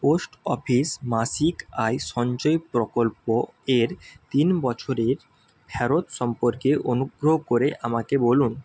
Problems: constant background noise